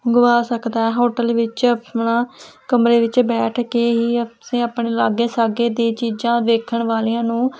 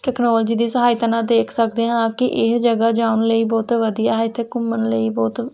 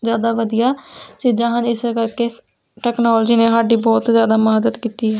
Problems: none marked